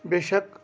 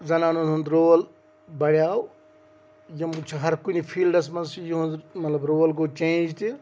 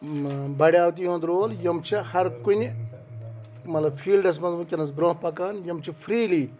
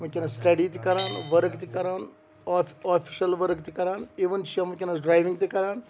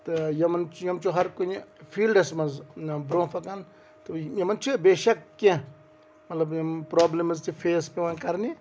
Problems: none marked